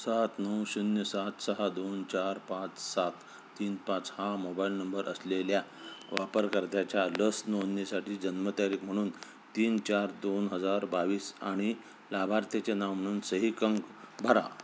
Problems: background sounds at intervals